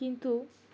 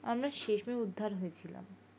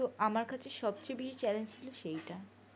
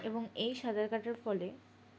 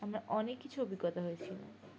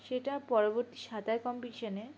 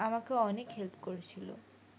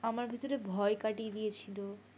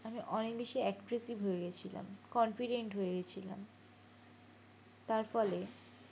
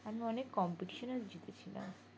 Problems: constant background noise